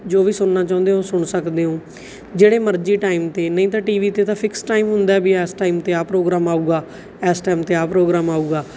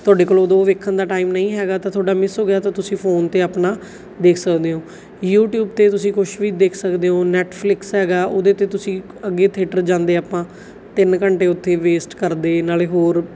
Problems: background sounds at intervals